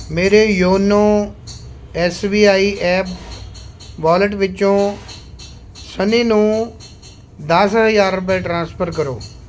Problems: constant background noise